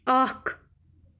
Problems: background sounds at intervals